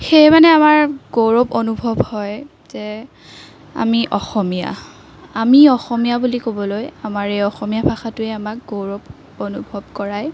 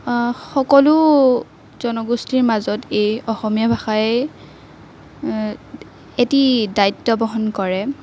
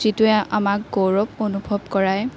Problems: none marked